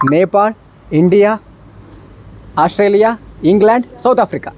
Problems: constant background noise